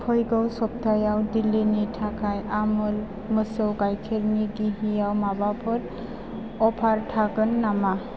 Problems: constant background noise